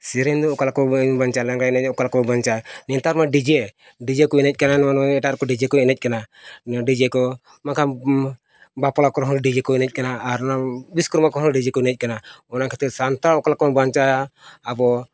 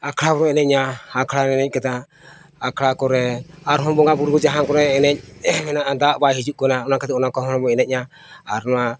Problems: none marked